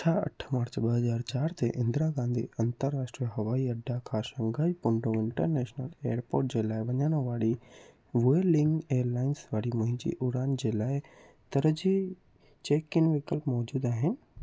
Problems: constant background noise